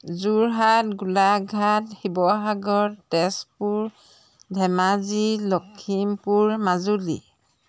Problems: background sounds at intervals